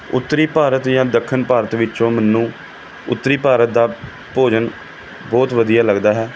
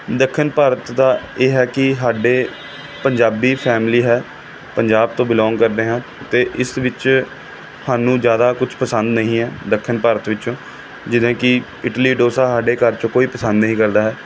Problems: background sounds at intervals